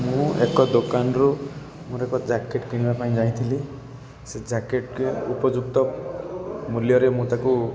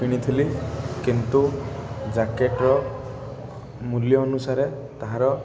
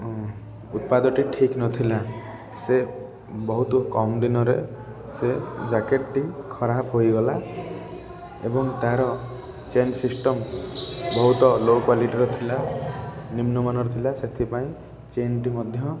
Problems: constant background noise, continuous background conversations